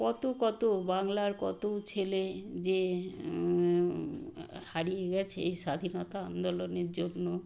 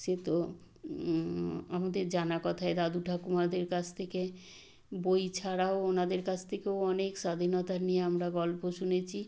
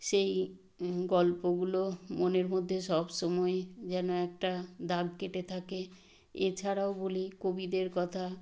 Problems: none marked